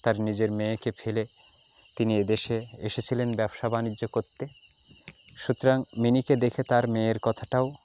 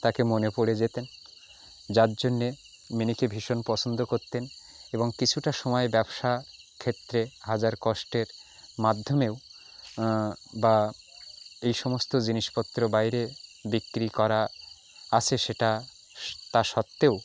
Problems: background sounds at intervals, continuous background conversations